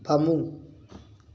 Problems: none marked